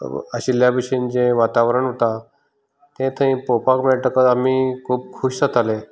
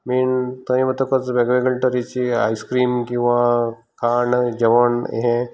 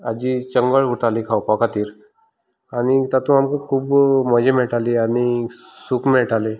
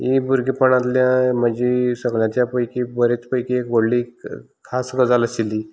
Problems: none marked